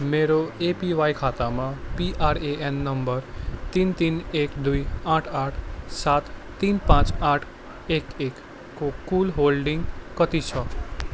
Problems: constant background noise